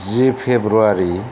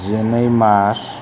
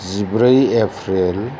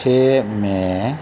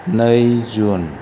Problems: none marked